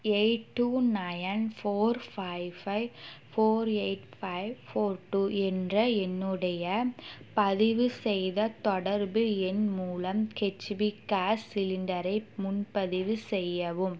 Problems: none marked